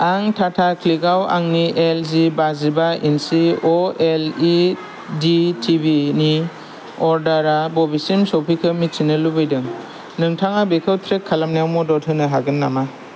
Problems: none marked